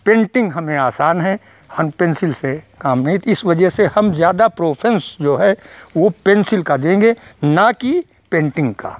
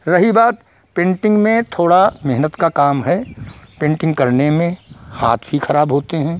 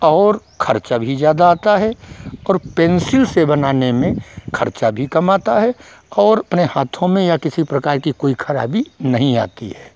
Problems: background sounds at intervals